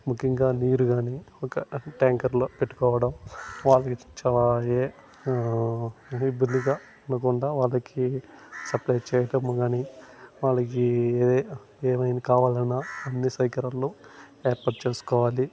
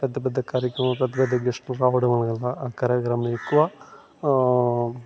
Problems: constant background noise, background conversations at intervals